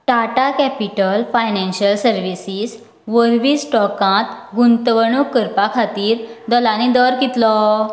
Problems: background sounds at intervals